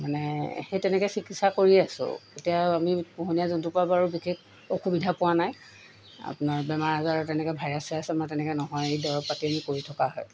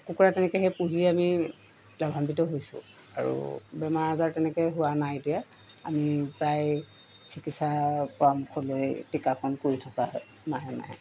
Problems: constant background noise